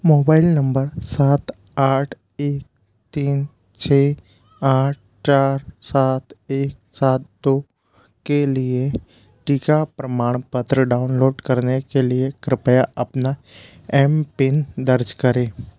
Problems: constant background noise